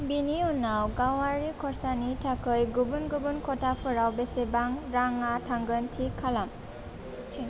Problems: constant background noise